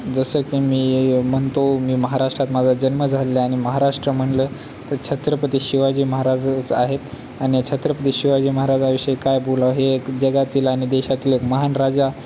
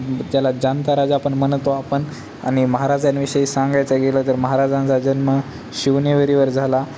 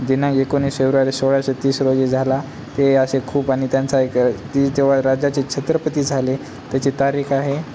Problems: constant background noise, background conversations at intervals